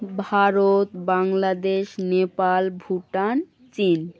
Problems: background sounds at intervals